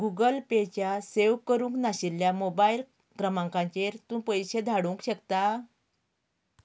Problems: background conversations at intervals